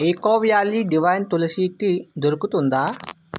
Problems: constant background noise